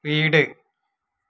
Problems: none marked